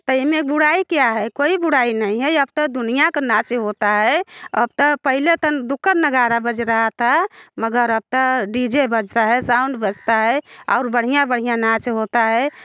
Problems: background sounds at intervals, background conversations at intervals